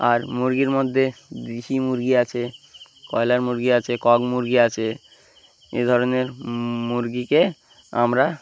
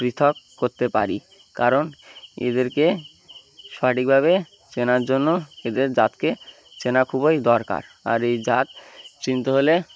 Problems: none marked